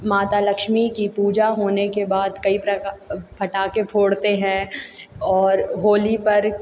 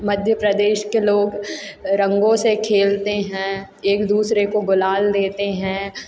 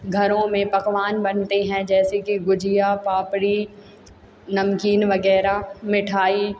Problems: constant background noise